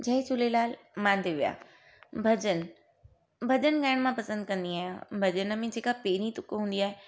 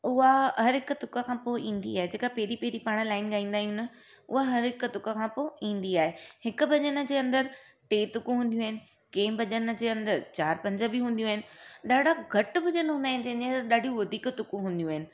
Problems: none marked